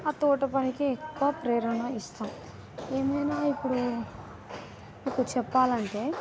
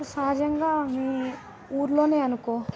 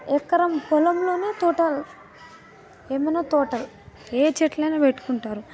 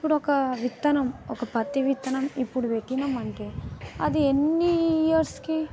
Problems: background sounds at intervals, background conversations at intervals